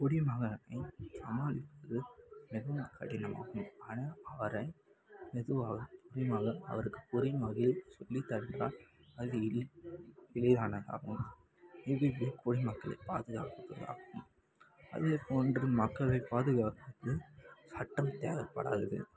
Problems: background sounds at intervals